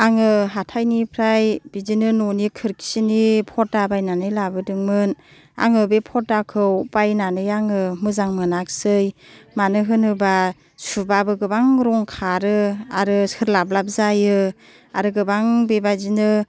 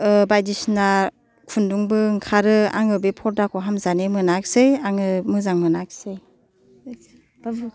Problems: background conversations at intervals